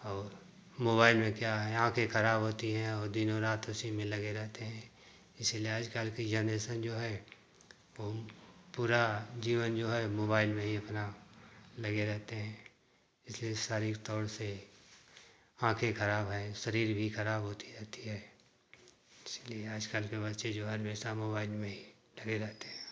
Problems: constant background noise